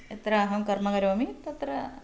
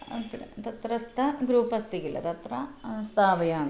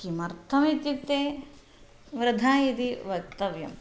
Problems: constant background noise